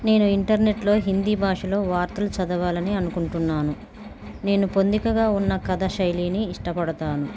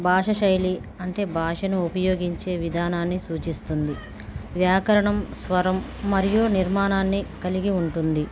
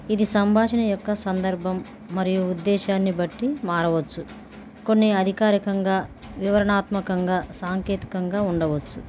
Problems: constant background noise, background conversations at intervals